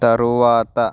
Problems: background sounds at intervals